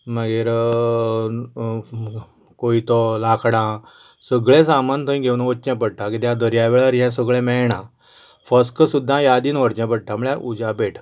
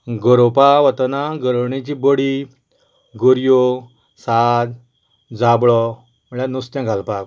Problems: none marked